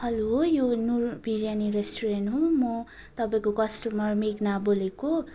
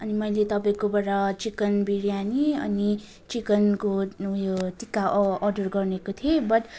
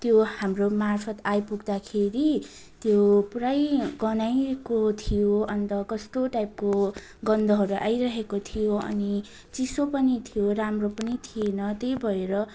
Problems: continuous background conversations